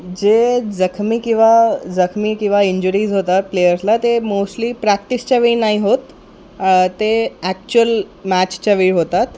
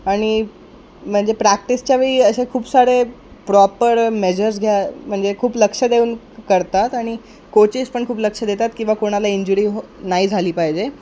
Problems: constant background noise, background conversations at intervals